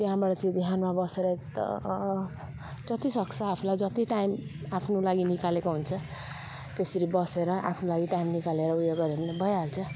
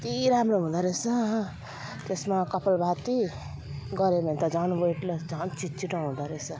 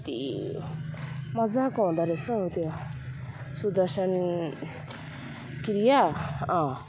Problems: none marked